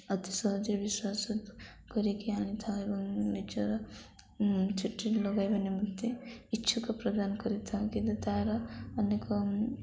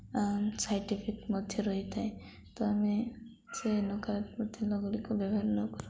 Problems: none marked